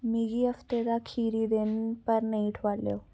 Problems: background sounds at intervals